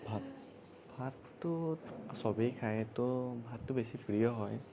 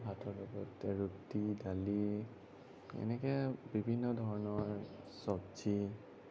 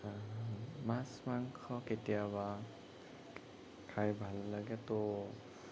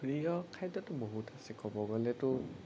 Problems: none marked